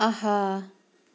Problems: background sounds at intervals